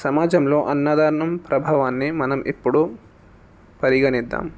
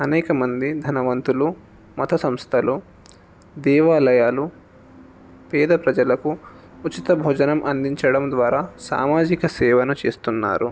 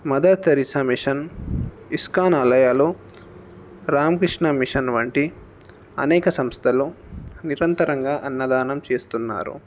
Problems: background sounds at intervals